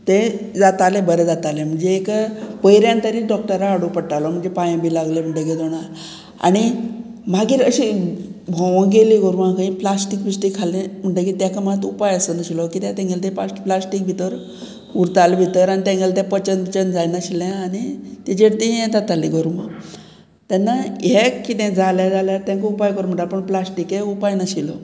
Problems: none marked